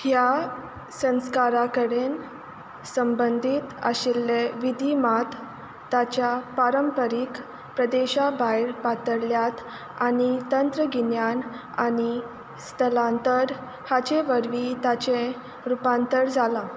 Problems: constant background noise